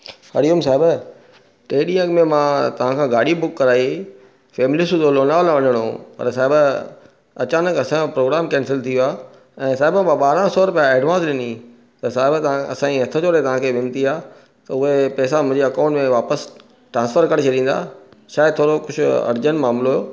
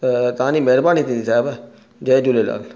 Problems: none marked